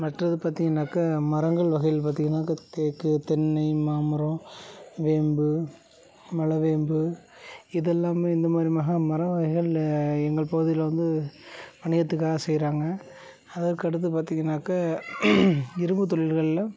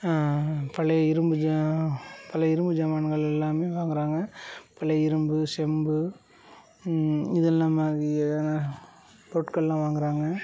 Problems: low volume